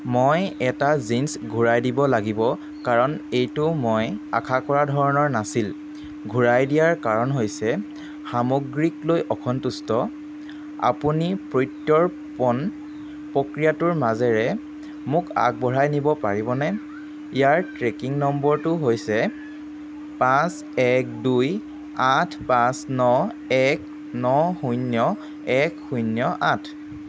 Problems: none marked